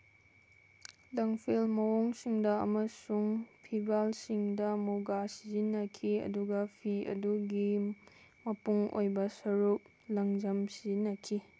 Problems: constant background noise